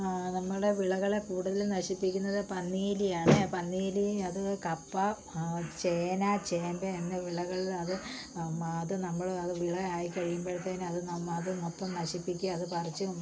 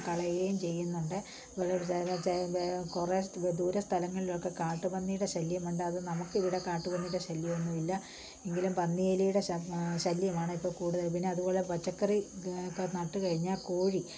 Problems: low volume